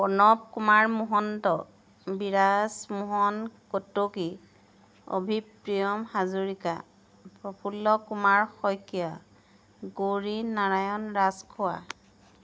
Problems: background sounds at intervals